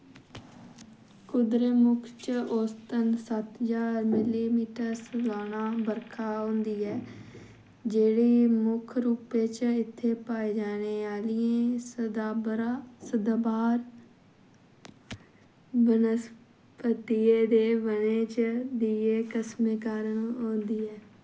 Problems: background sounds at intervals